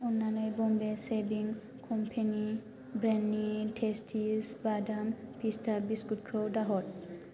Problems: constant background noise